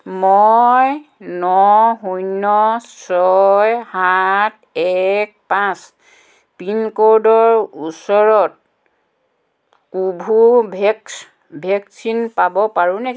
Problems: none marked